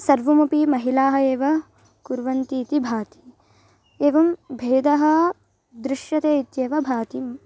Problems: background sounds at intervals